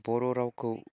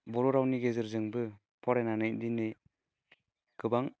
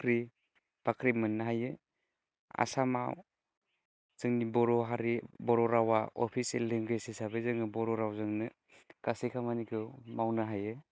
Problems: none marked